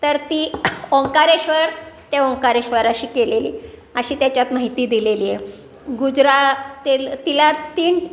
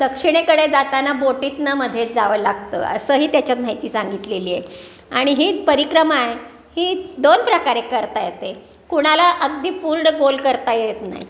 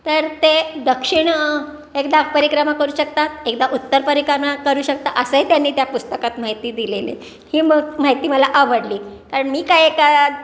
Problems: constant background noise